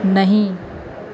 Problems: constant background noise